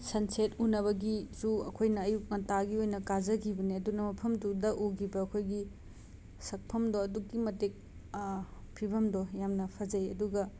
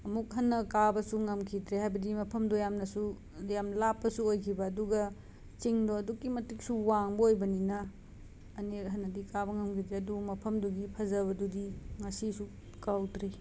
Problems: background sounds at intervals